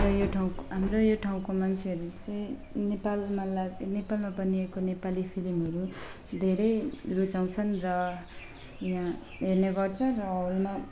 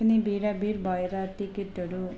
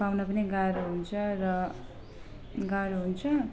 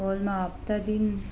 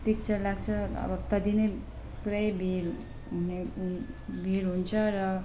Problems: background sounds at intervals, low volume